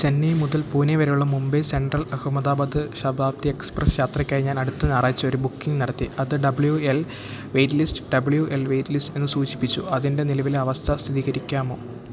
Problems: low volume